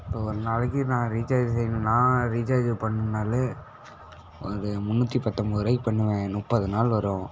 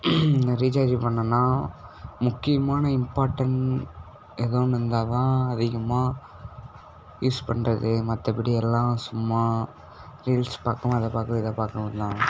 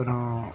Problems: background sounds at intervals